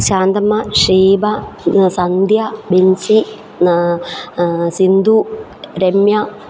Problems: background sounds at intervals